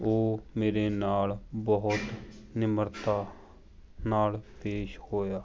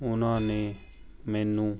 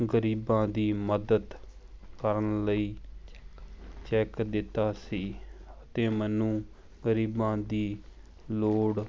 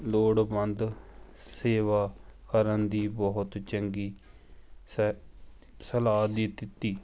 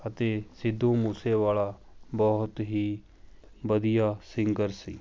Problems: background sounds at intervals